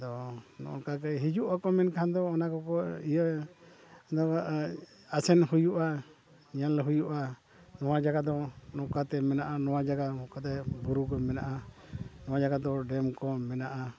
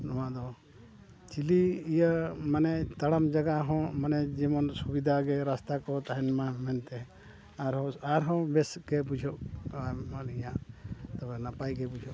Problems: background sounds at intervals, background conversations at intervals